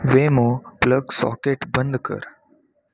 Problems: constant background noise